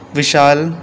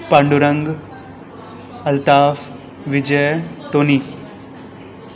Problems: background sounds at intervals